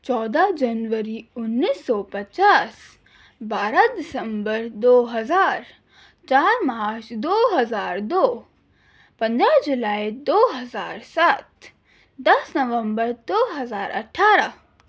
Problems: none marked